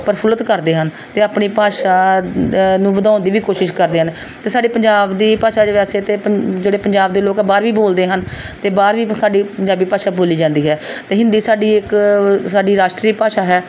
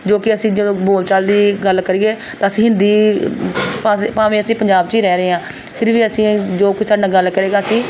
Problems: background sounds at intervals